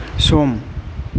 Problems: constant background noise